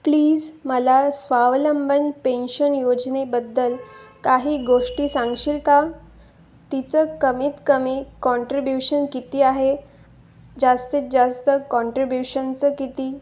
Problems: background sounds at intervals